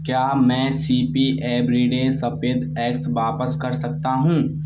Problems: none marked